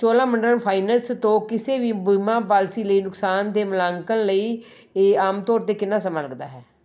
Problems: none marked